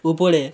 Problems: none marked